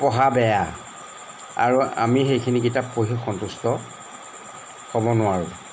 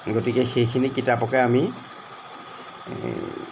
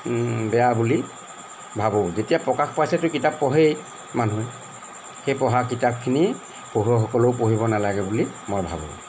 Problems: background sounds at intervals